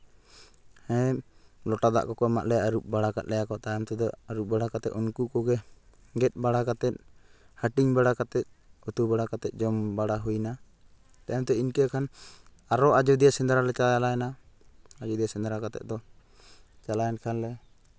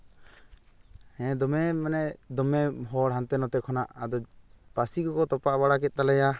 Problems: background sounds at intervals